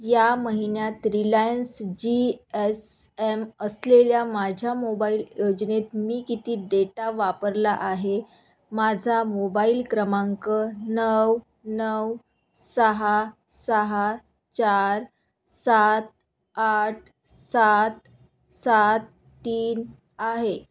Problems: background sounds at intervals